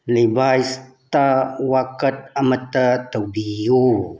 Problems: background sounds at intervals